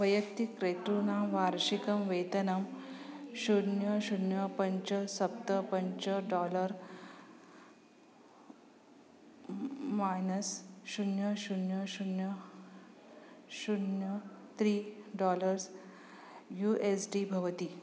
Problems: constant background noise